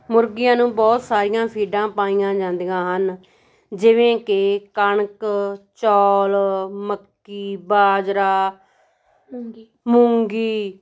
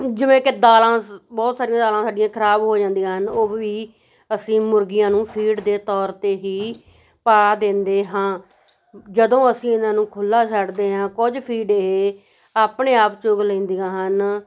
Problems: background conversations at intervals